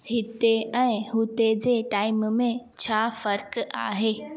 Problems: background sounds at intervals, echo